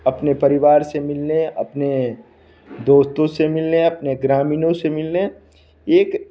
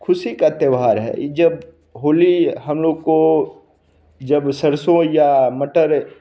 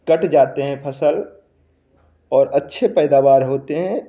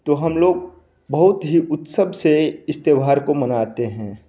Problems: none marked